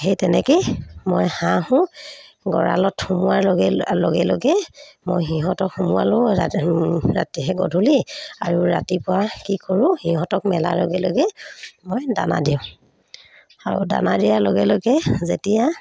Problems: none marked